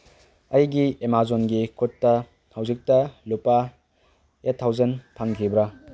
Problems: background sounds at intervals